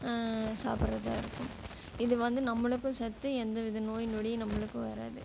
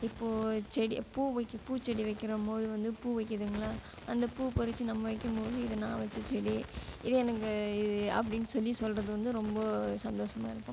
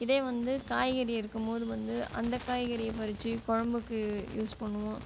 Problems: background sounds at intervals